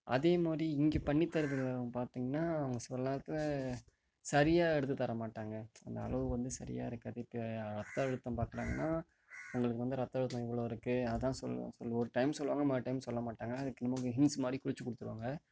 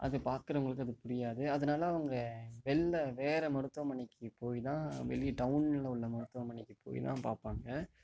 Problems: background sounds at intervals, low volume